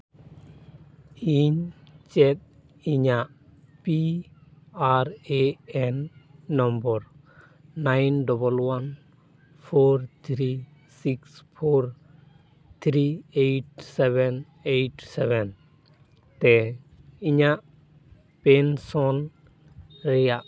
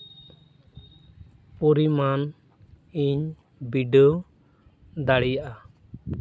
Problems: none marked